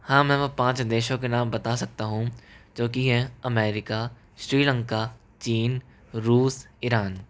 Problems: echo